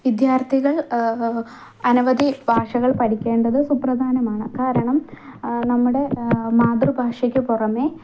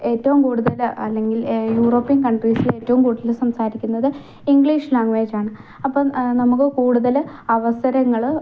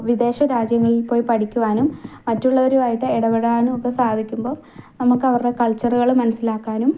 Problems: none marked